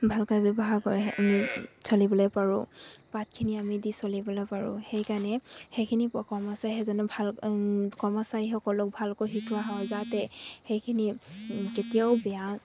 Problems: constant background noise